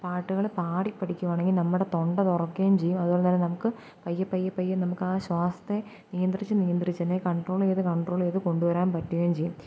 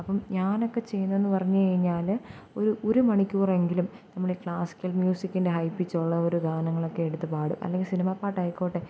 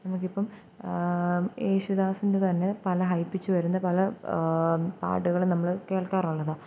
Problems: low volume